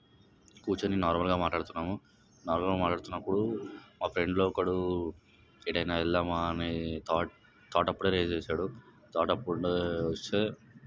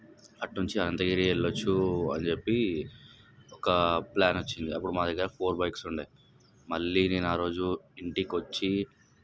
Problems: background sounds at intervals